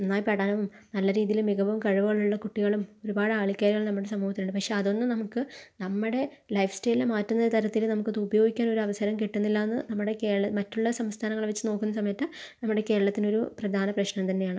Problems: none marked